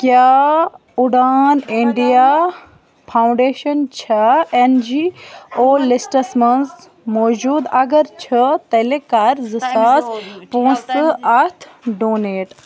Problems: continuous background conversations